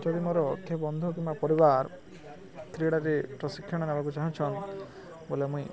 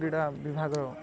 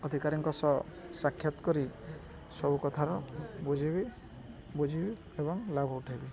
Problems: low volume